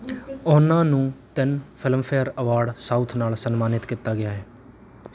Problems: background sounds at intervals